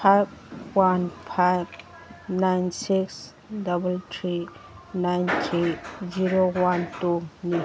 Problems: background sounds at intervals, background conversations at intervals